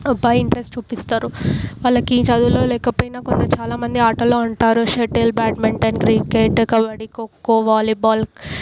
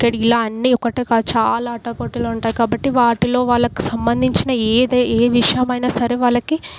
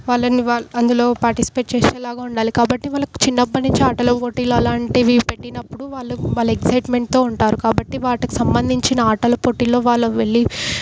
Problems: background sounds at intervals